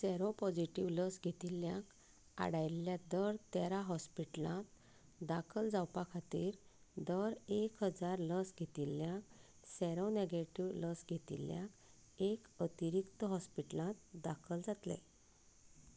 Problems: low volume